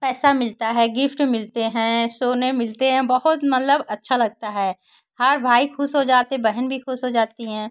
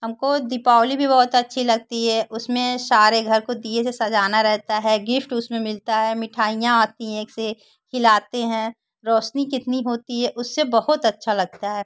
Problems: constant background noise